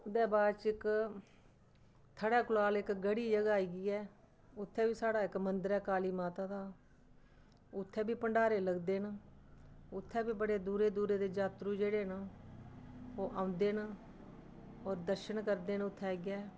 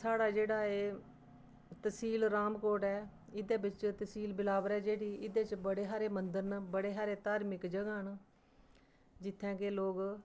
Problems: none marked